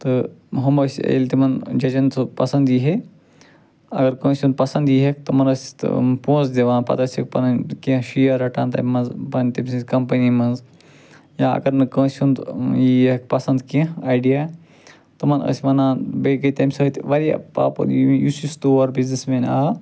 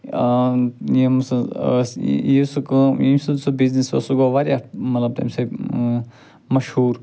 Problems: none marked